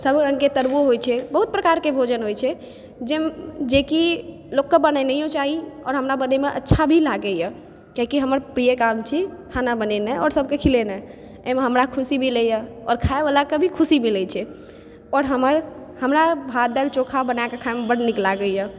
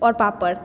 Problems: background sounds at intervals